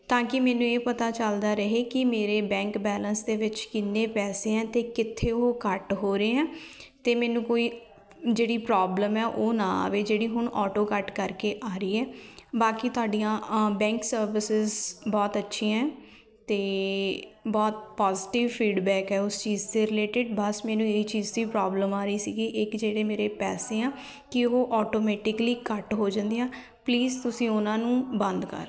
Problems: continuous background conversations